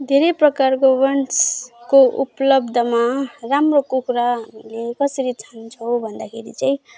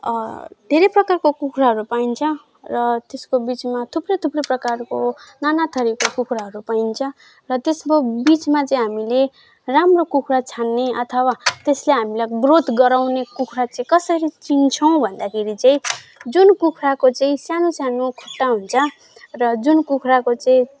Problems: background sounds at intervals